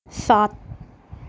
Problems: none marked